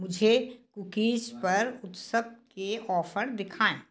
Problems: background sounds at intervals